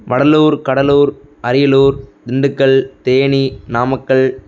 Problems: background sounds at intervals